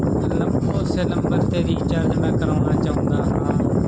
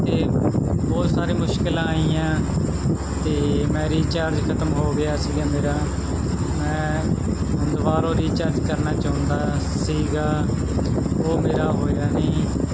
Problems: constant background noise, background conversations at intervals